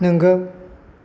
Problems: none marked